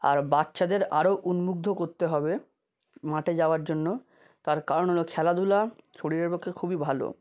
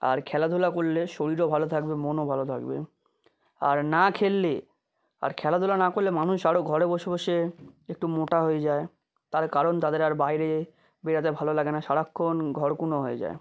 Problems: none marked